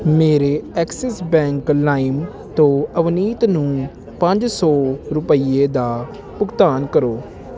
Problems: none marked